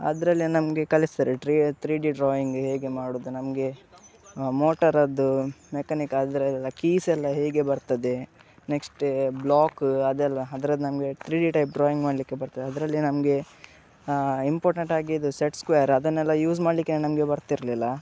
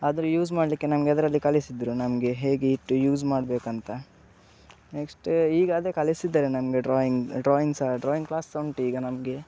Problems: background sounds at intervals, background conversations at intervals